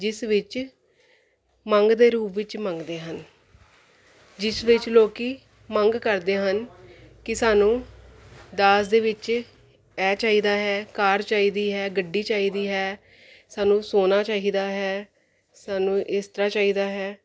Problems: none marked